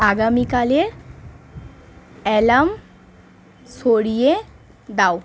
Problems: constant background noise